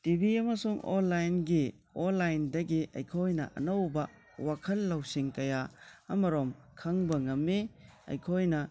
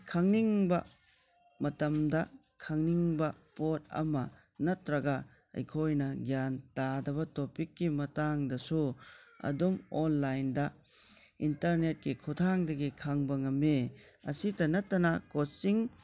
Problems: low volume